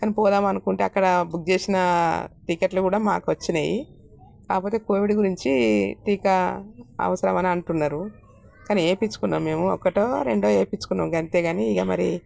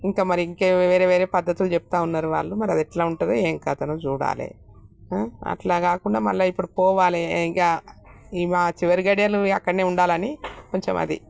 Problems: none marked